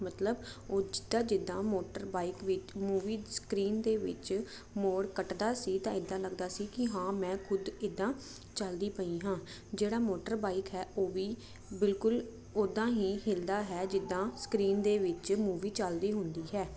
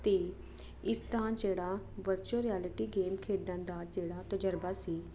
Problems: constant background noise